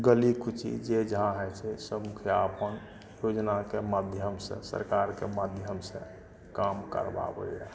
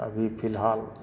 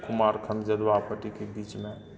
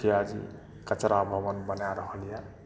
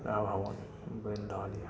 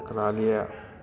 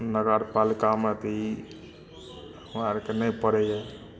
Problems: background conversations at intervals